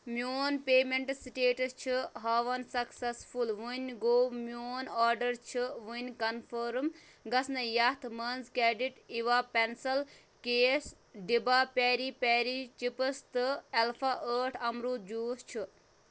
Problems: none marked